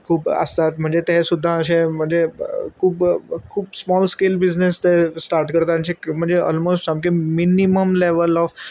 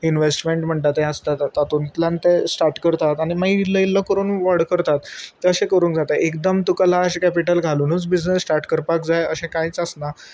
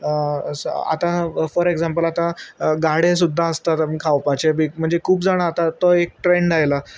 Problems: constant background noise